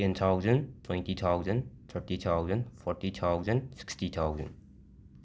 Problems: none marked